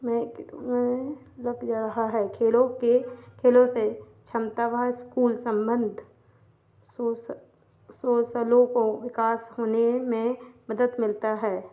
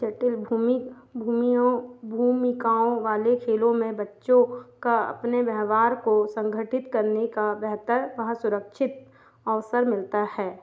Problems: none marked